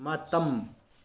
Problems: low volume